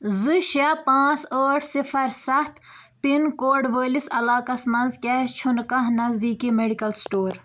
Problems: none marked